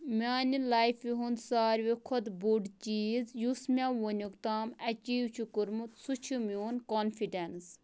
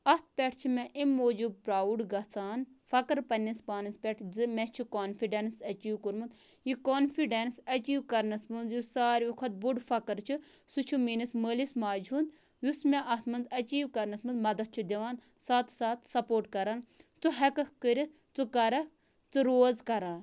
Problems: background sounds at intervals